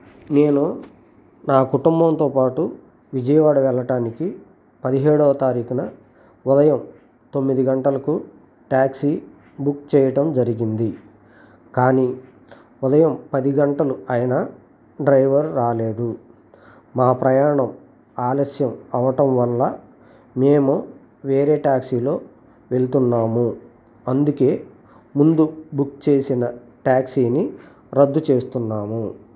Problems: constant background noise